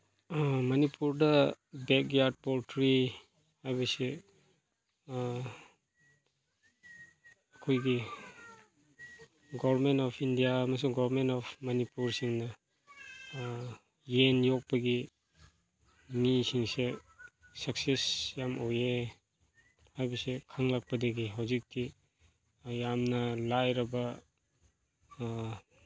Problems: background conversations at intervals